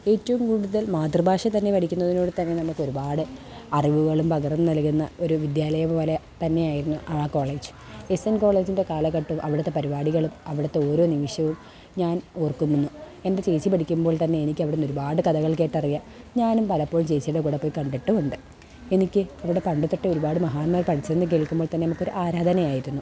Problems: background sounds at intervals